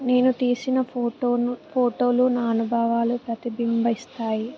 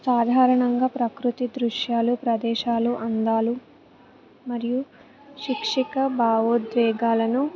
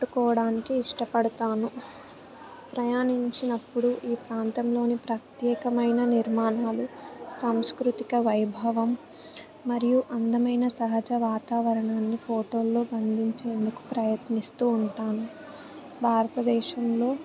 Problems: background sounds at intervals, background conversations at intervals